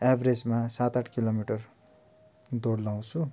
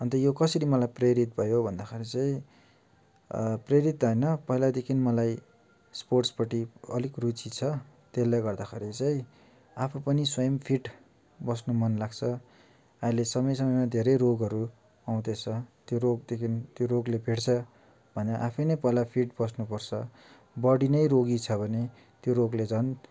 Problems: none marked